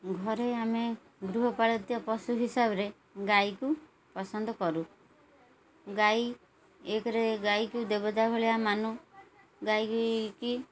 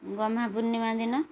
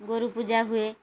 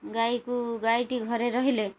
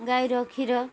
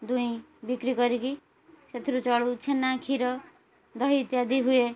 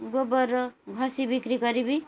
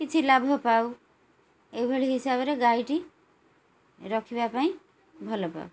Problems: none marked